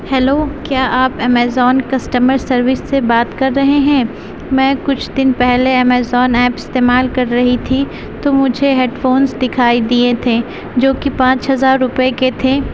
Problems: constant background noise